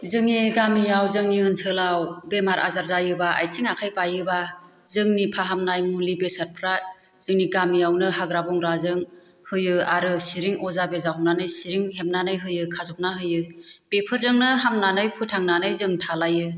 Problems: constant background noise